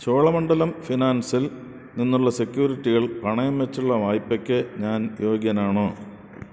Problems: none marked